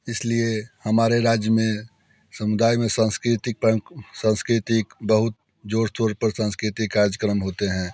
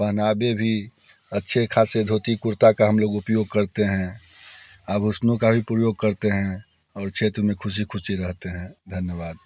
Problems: none marked